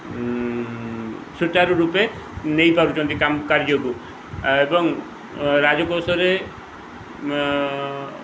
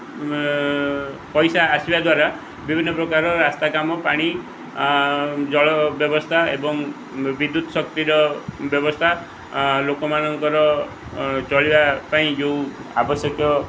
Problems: none marked